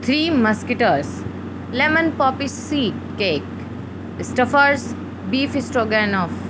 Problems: constant background noise